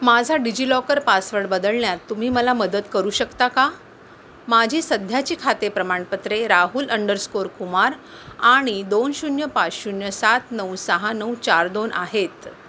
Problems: none marked